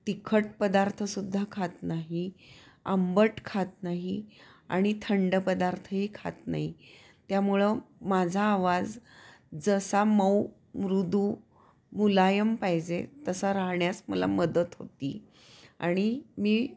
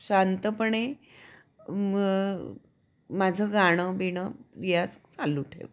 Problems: none marked